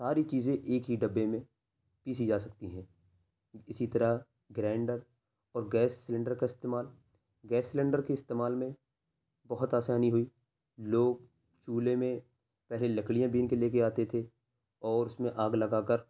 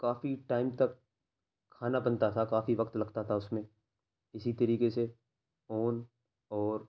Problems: background sounds at intervals